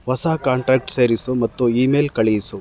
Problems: background sounds at intervals